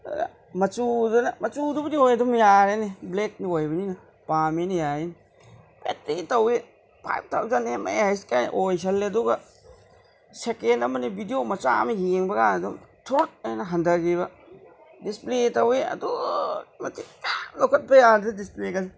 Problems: background sounds at intervals